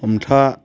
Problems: constant background noise